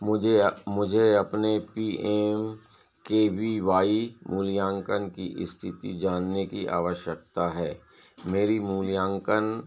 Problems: constant background noise